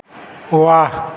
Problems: none marked